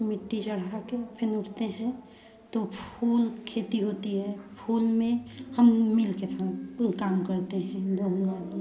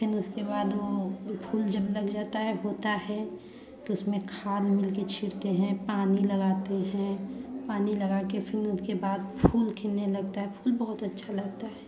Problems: background sounds at intervals, background conversations at intervals